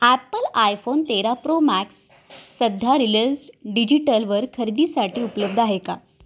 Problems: background sounds at intervals